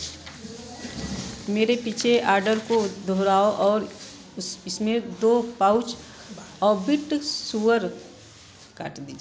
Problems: background sounds at intervals